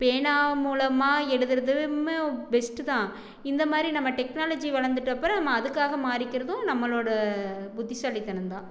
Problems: background conversations at intervals